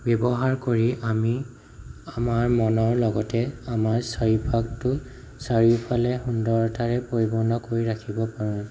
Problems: low volume